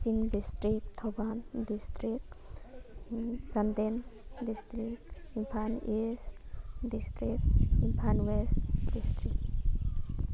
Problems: constant background noise